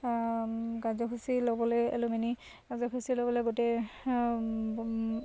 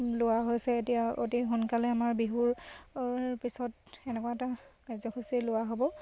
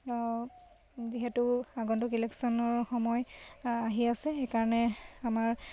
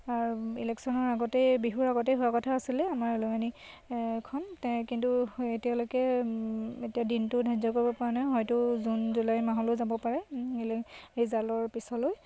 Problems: constant background noise